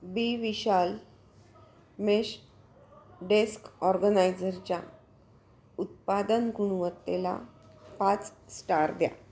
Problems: constant background noise, continuous background conversations